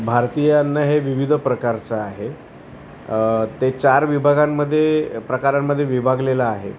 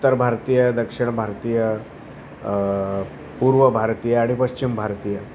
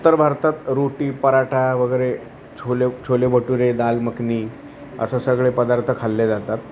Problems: constant background noise, continuous background conversations